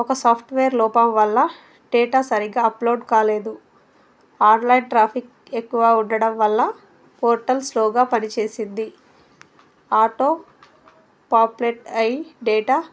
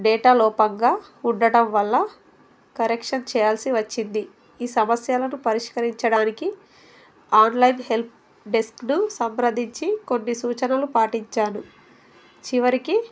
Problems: none marked